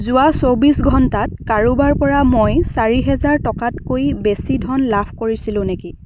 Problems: background sounds at intervals